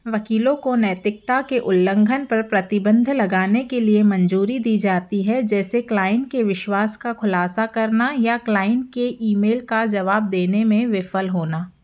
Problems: none marked